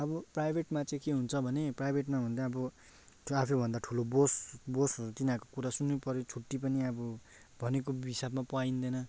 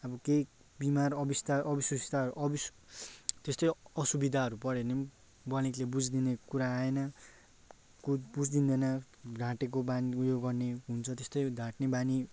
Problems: none marked